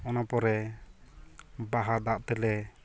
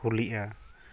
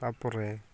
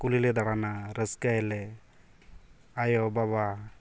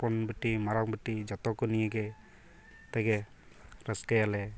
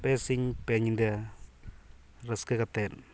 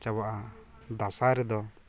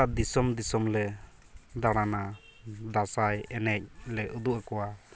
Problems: constant background noise, continuous background conversations